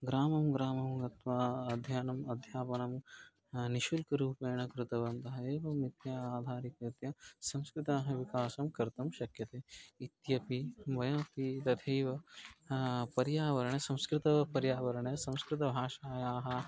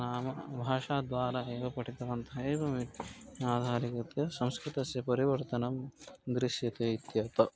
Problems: background sounds at intervals